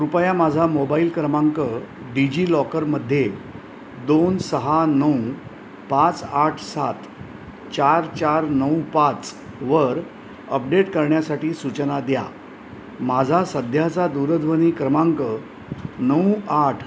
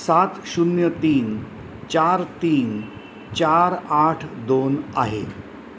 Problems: constant background noise